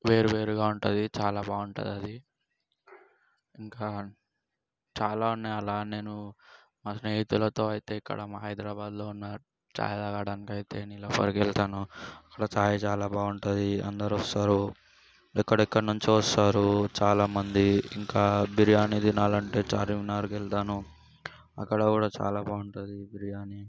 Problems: background sounds at intervals